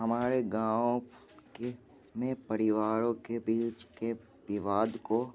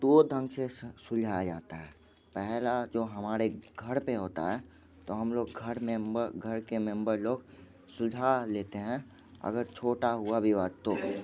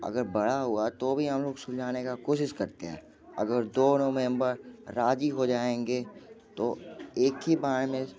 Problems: constant background noise, continuous background conversations